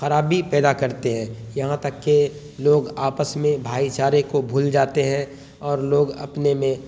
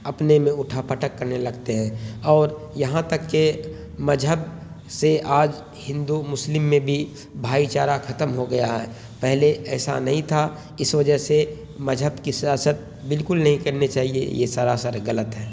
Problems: constant background noise